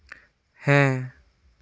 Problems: none marked